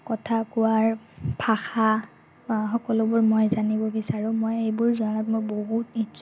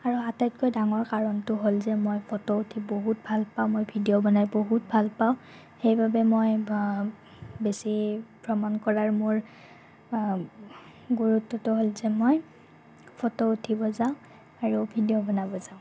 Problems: constant background noise